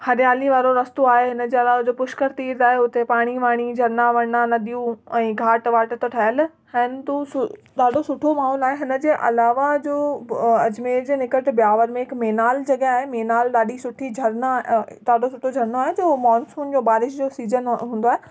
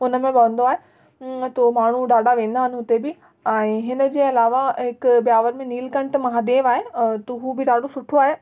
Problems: background sounds at intervals, echo